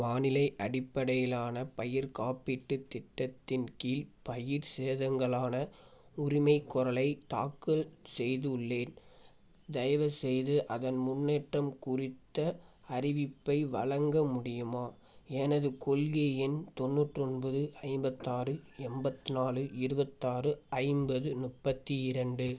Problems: background sounds at intervals